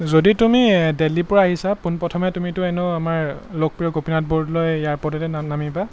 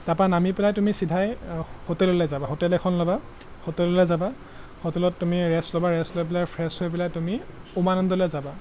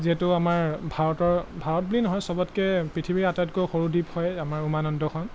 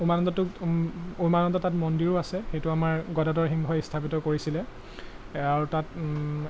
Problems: none marked